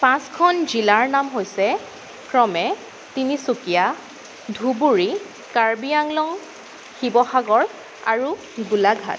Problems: constant background noise